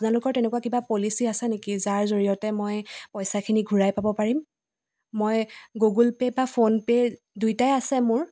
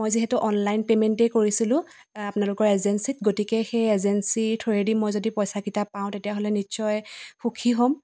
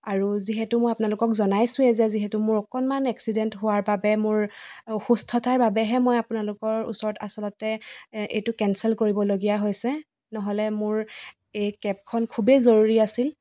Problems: constant background noise, echo